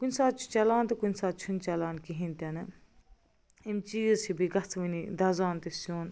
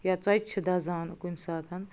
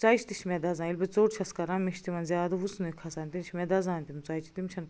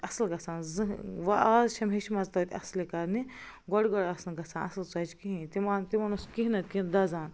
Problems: none marked